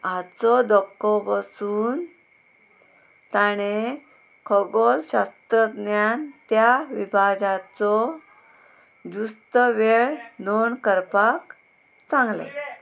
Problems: constant background noise